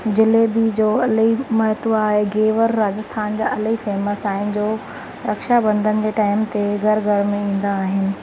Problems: constant background noise